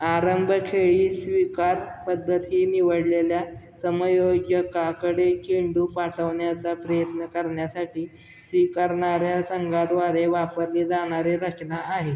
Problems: none marked